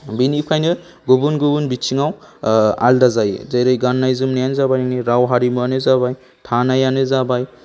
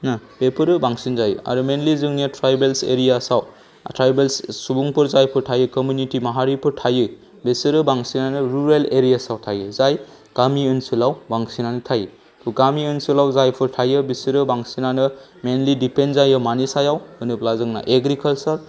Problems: low volume